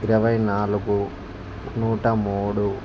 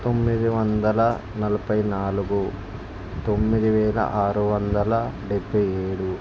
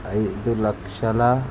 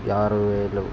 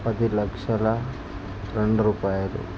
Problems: constant background noise